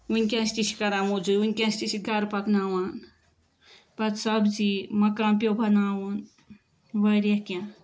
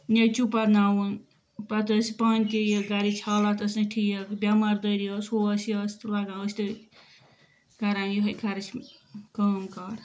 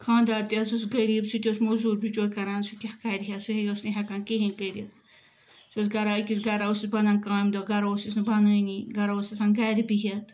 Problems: background sounds at intervals